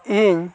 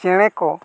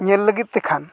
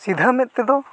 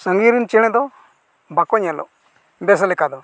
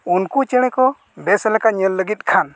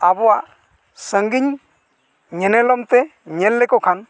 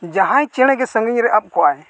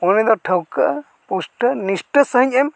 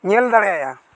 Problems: none marked